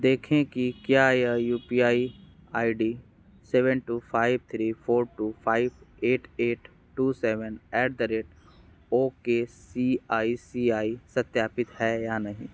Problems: constant background noise